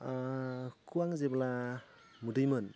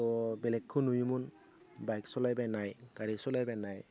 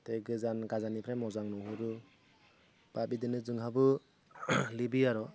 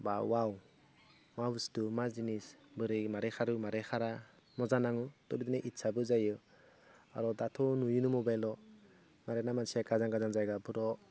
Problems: none marked